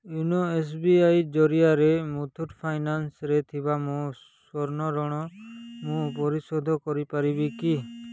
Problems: background sounds at intervals